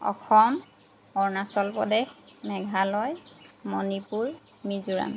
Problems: constant background noise